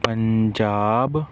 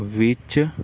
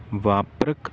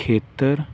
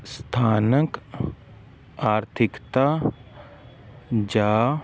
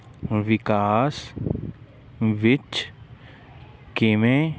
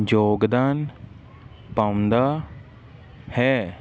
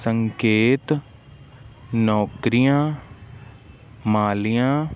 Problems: none marked